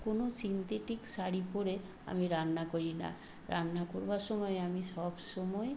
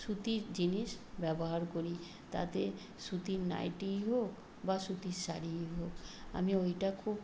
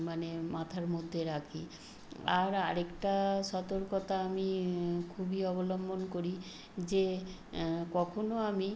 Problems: constant background noise